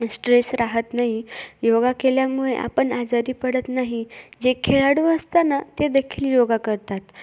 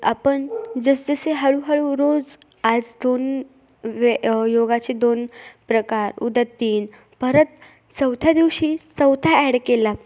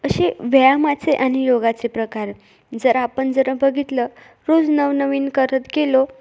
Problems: background sounds at intervals